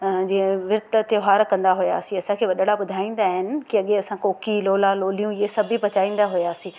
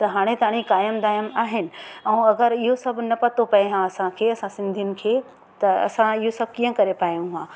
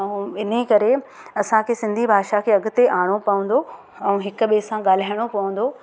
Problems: constant background noise